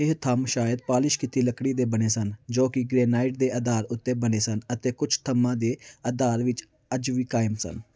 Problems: background sounds at intervals